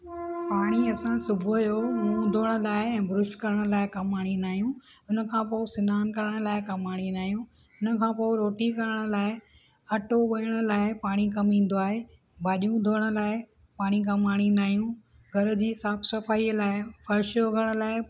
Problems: background sounds at intervals